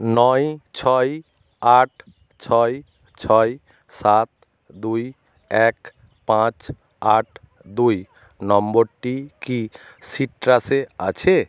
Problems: constant background noise